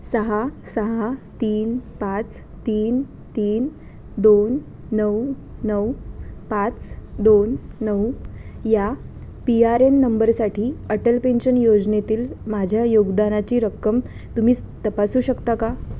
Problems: constant background noise